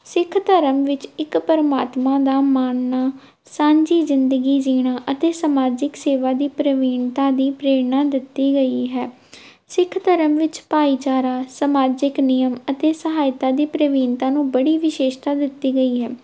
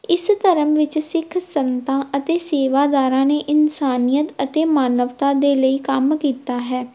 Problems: background sounds at intervals